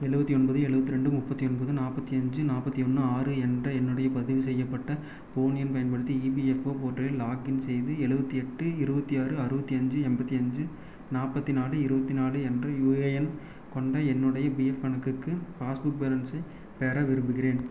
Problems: none marked